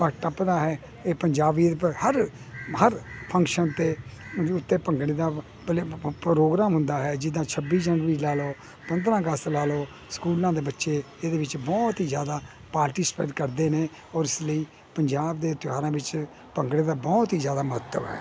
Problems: none marked